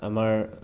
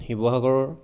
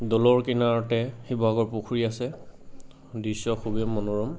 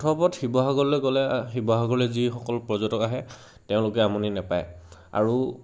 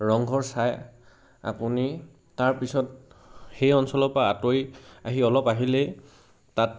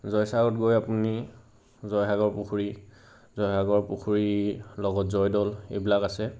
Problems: constant background noise, background conversations at intervals